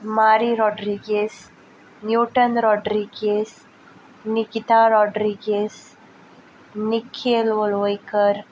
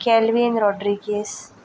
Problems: background sounds at intervals